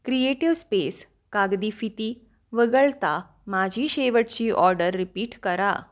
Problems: background sounds at intervals